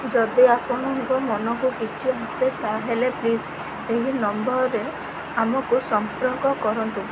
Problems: constant background noise